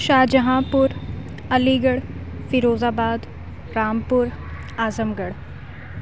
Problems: none marked